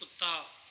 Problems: background sounds at intervals